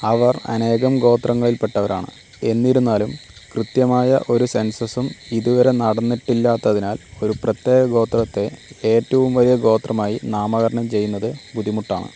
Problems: constant background noise